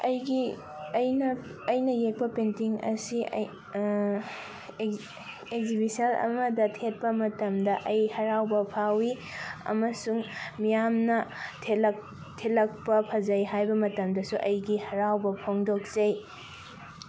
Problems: none marked